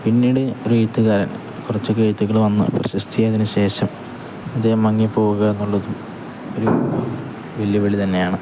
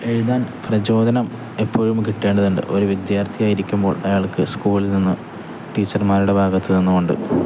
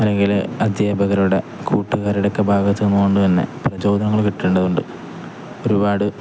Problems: none marked